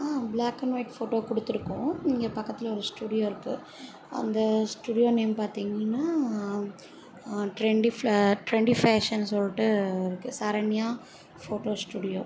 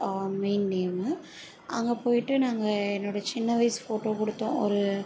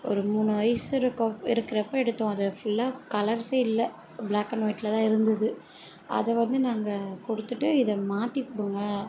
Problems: none marked